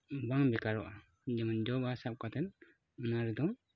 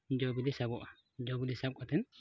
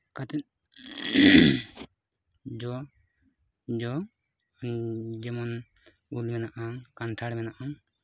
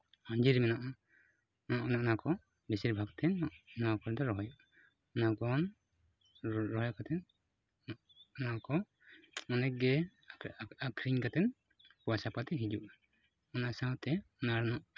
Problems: none marked